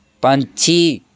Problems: background sounds at intervals